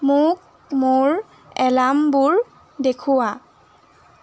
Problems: constant background noise